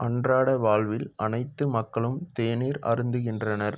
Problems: background sounds at intervals